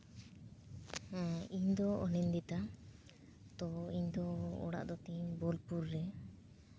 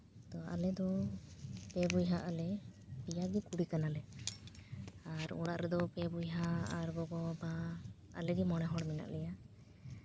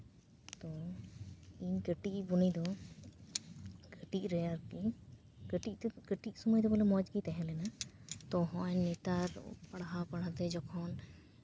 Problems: background sounds at intervals, low volume